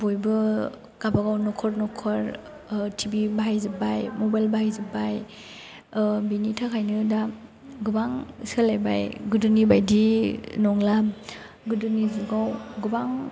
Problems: low volume